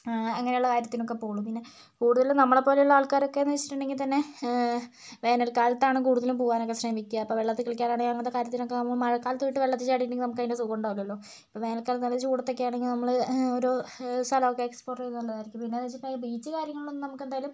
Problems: none marked